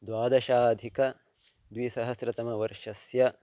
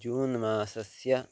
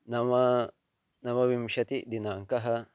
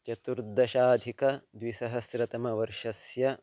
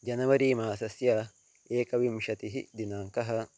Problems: constant background noise